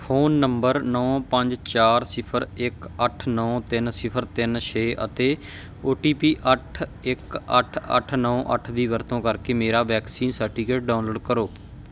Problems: background sounds at intervals